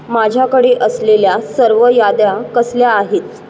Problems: constant background noise